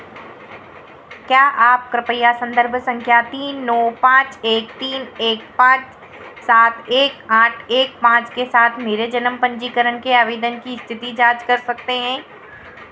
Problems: constant background noise